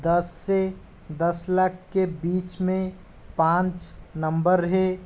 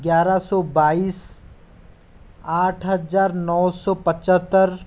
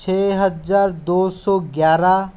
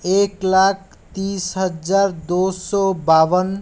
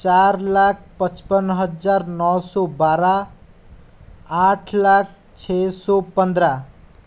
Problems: none marked